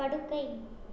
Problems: low volume